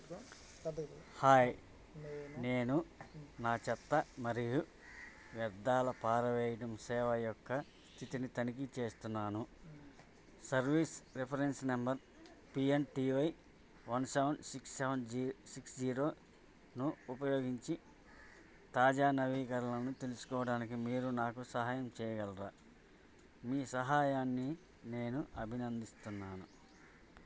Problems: none marked